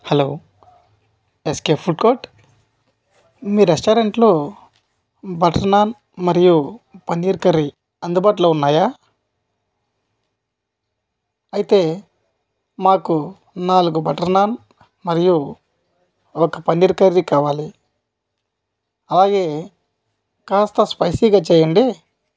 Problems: none marked